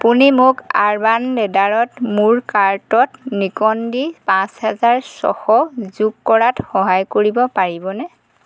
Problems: constant background noise